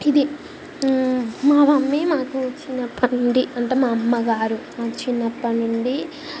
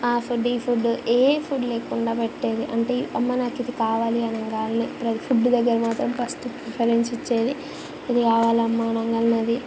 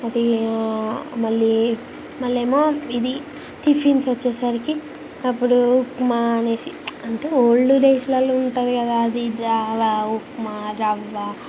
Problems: constant background noise